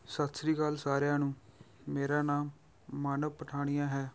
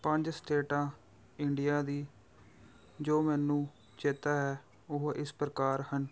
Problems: background sounds at intervals